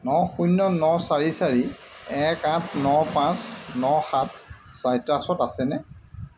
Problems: constant background noise